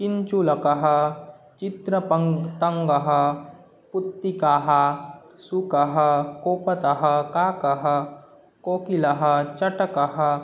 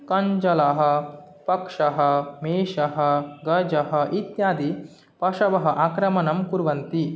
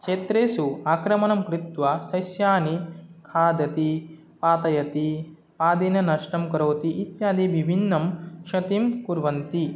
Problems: none marked